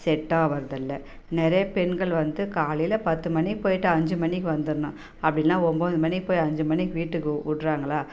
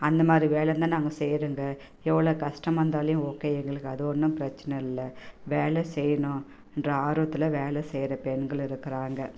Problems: background sounds at intervals